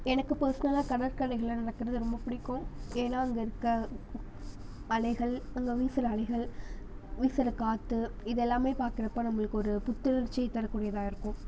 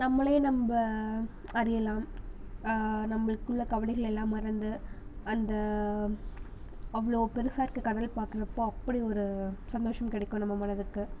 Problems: none marked